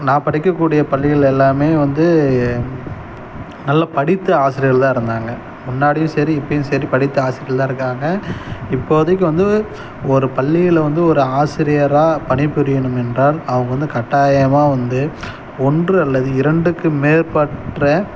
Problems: none marked